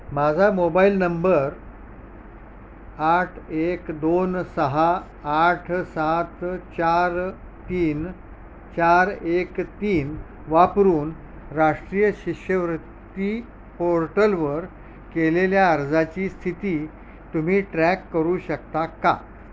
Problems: constant background noise